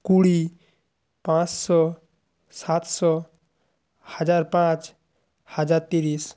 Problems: background sounds at intervals